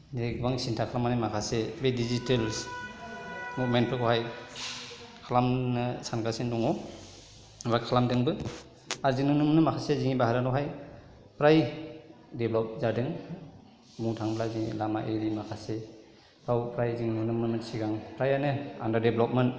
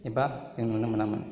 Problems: none marked